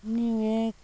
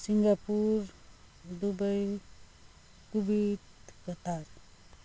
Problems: constant background noise